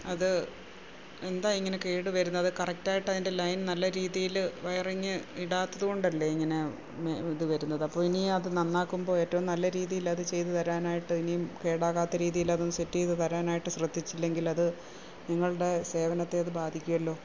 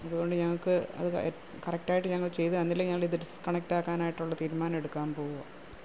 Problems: constant background noise, low volume